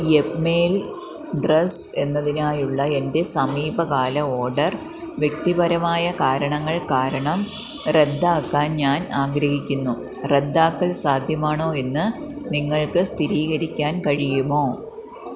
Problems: low volume